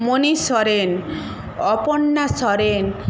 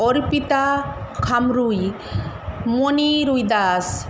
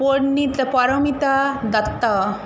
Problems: constant background noise